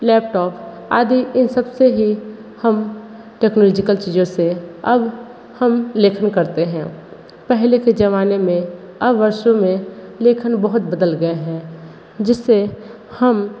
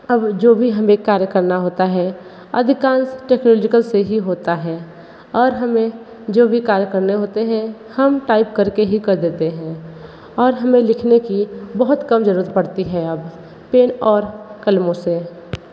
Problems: none marked